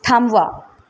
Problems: constant background noise